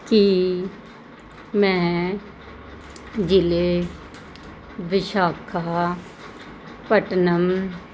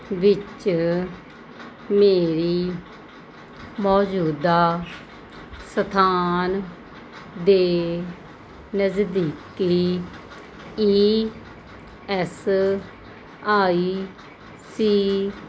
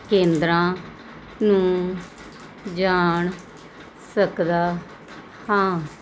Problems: constant background noise